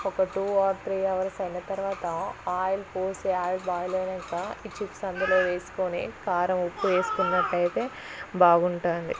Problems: constant background noise, background conversations at intervals, low volume